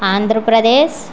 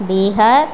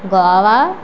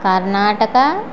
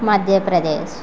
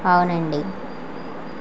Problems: constant background noise